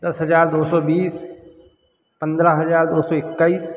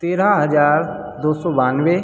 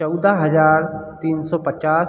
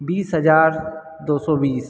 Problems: background sounds at intervals